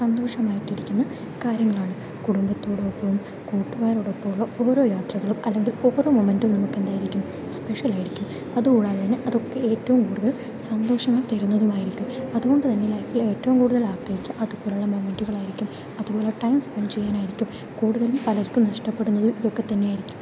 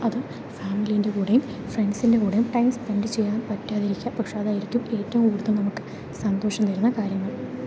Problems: low volume